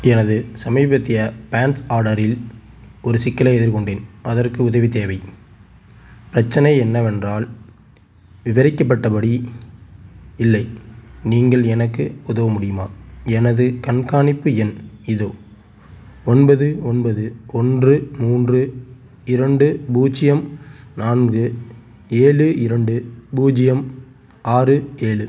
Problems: none marked